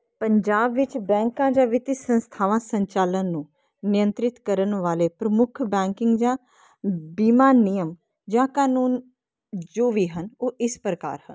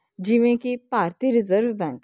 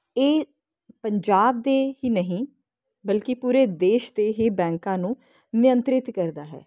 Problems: constant background noise